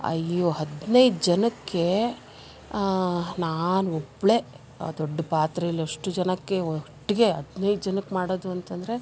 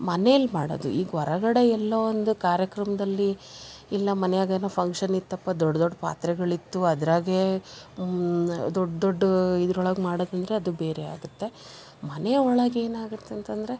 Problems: background sounds at intervals